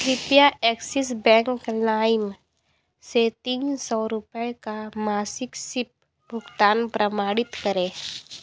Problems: constant background noise, continuous background conversations